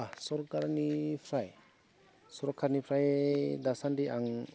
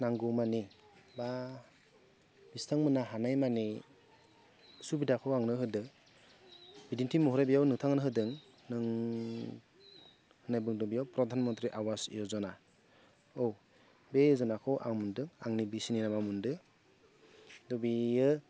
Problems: low volume